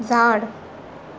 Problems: constant background noise